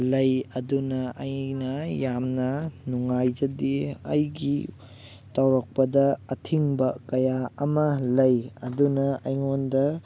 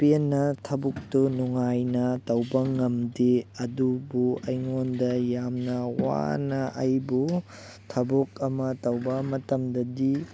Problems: background conversations at intervals